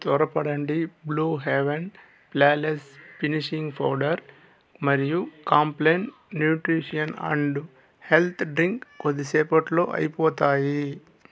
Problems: constant background noise, background conversations at intervals